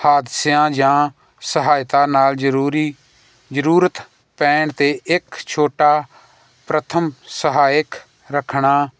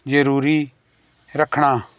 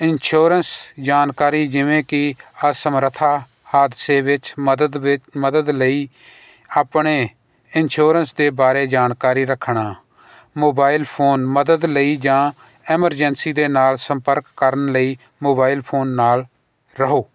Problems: none marked